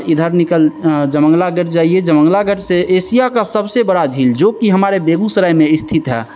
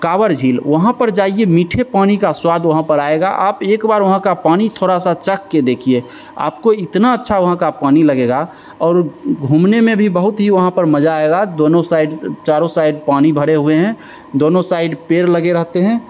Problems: constant background noise, echo